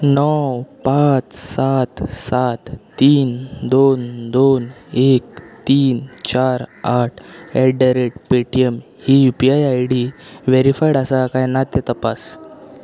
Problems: continuous background conversations